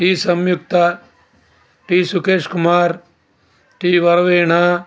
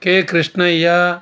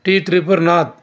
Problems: constant background noise, background conversations at intervals